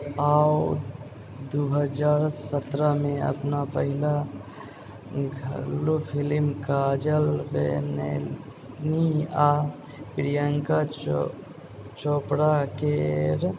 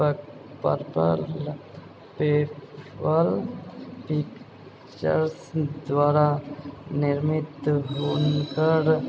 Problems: background sounds at intervals, background conversations at intervals, low volume